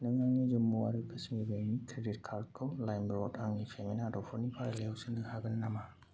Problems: none marked